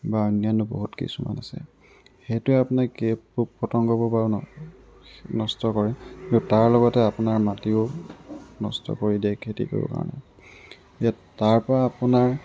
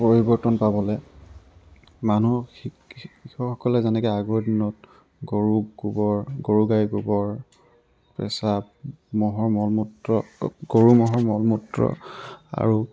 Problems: background sounds at intervals